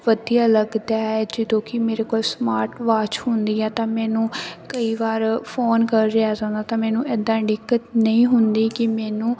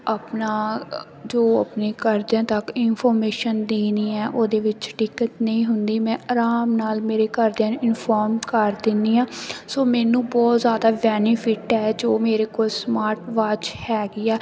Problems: constant background noise